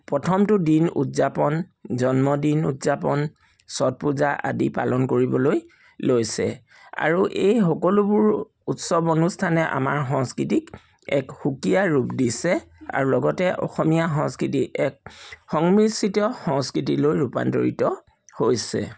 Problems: background sounds at intervals